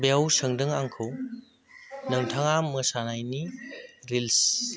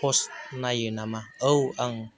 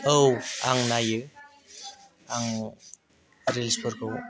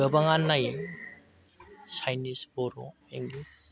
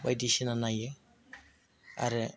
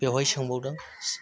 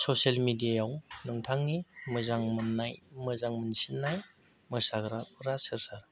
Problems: none marked